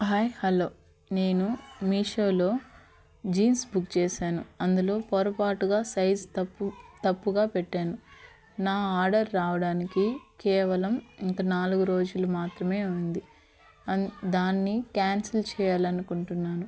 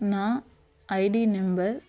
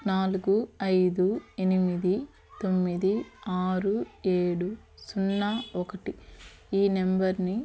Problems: constant background noise, background conversations at intervals